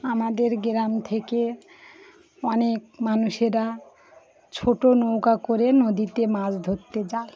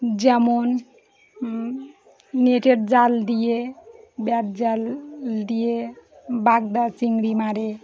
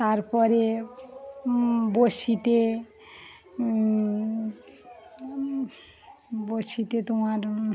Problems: background sounds at intervals, background conversations at intervals